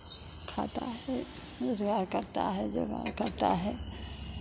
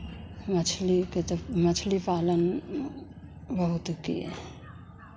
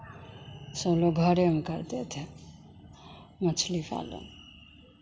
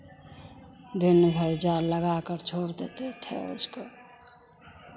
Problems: constant background noise, background conversations at intervals